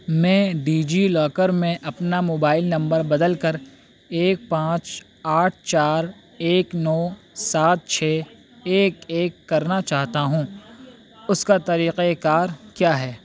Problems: constant background noise